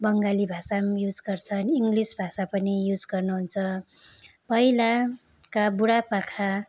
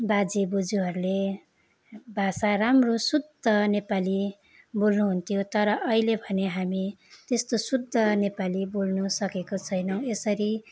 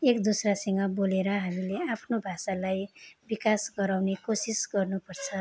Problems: none marked